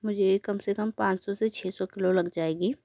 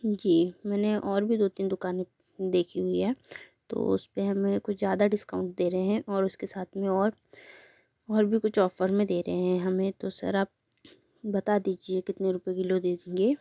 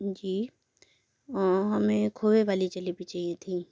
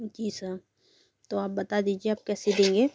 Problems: background sounds at intervals